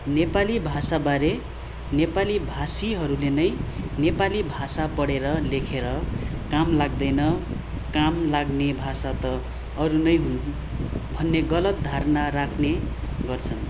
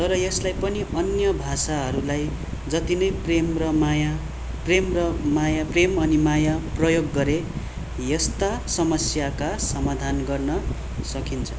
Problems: constant background noise